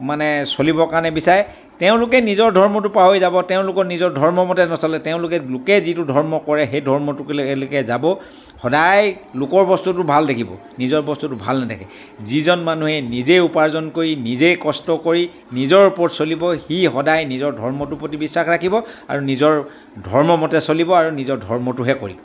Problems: none marked